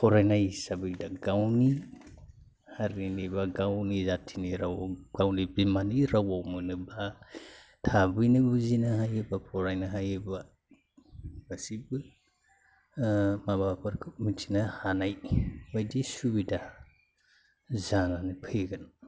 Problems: low volume